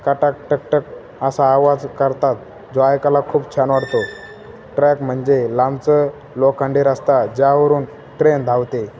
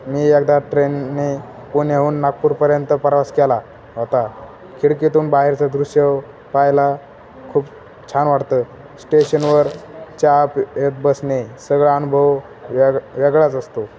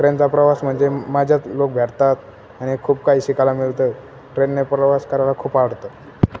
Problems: constant background noise